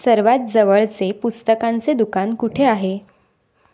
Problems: none marked